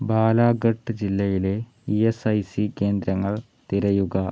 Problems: none marked